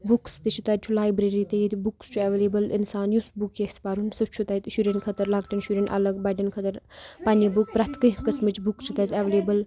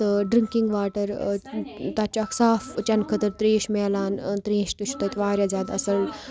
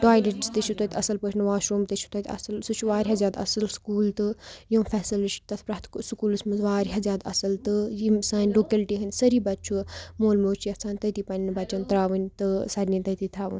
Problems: background sounds at intervals, background conversations at intervals